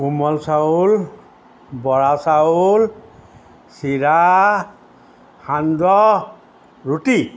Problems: background sounds at intervals